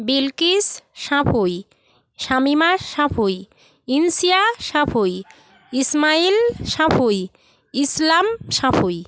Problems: background conversations at intervals